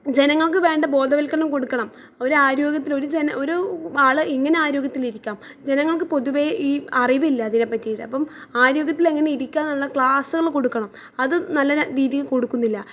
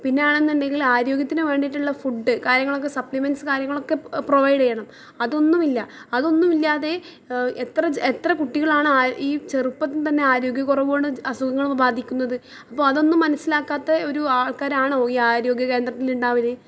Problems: background conversations at intervals